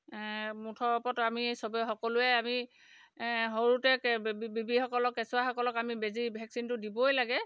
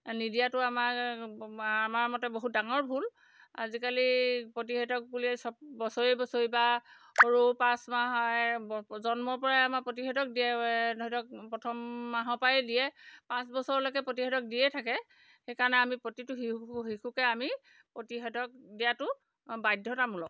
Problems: none marked